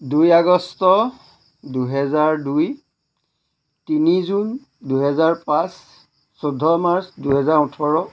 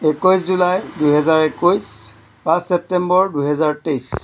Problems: none marked